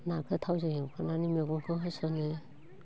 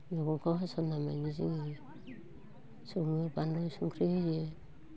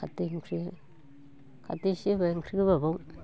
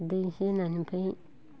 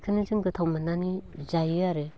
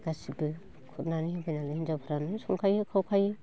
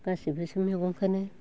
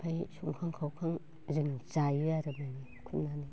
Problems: constant background noise, continuous background conversations